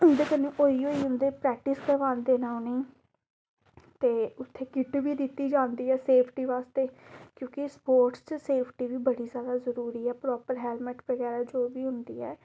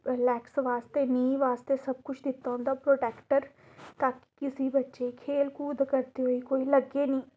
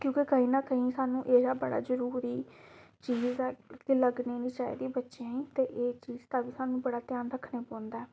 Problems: background sounds at intervals